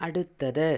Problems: low volume